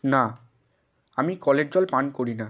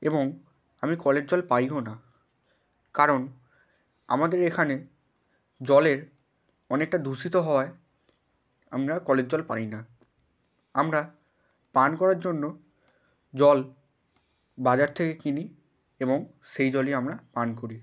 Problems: none marked